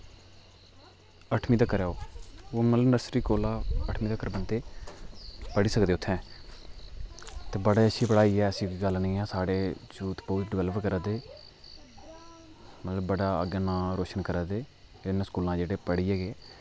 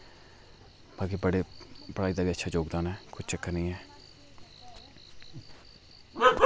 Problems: echo